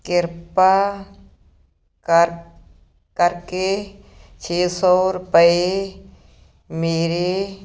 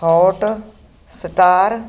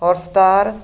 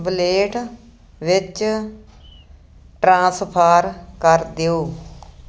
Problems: none marked